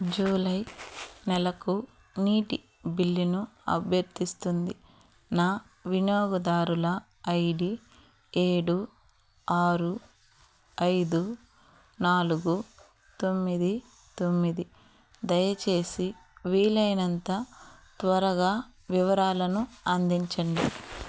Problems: background sounds at intervals